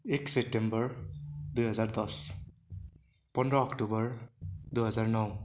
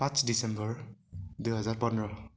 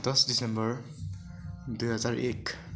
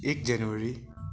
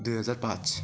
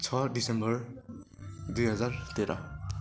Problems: none marked